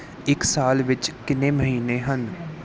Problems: background conversations at intervals